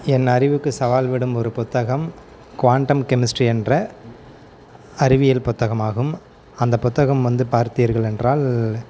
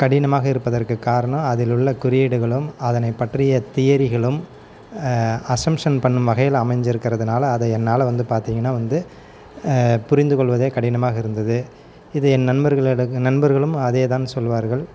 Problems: background sounds at intervals, background conversations at intervals